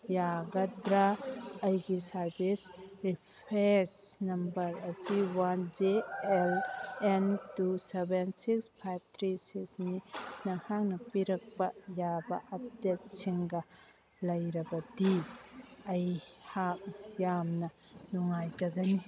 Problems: background conversations at intervals